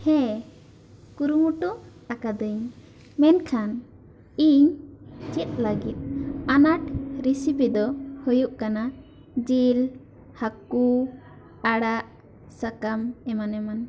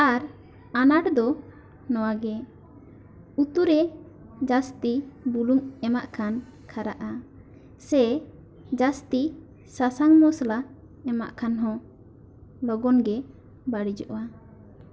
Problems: background sounds at intervals, background conversations at intervals